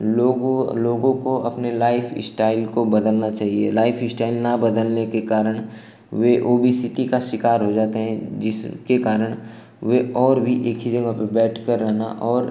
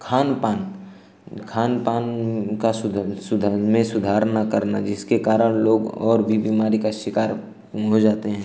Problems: constant background noise